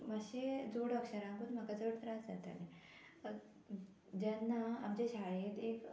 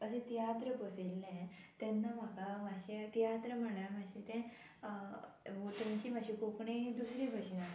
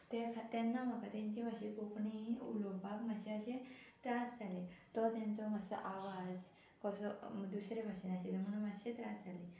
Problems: constant background noise